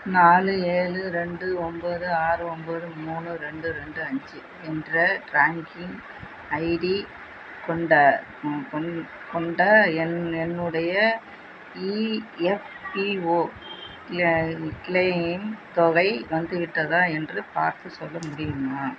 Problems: constant background noise